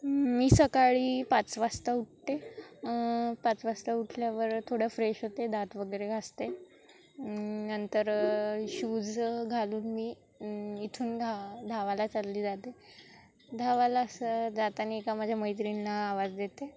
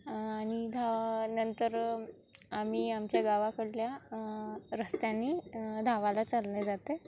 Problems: constant background noise, background conversations at intervals